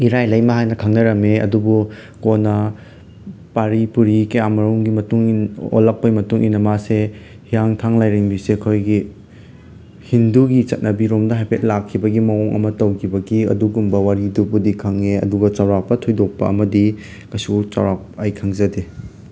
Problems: constant background noise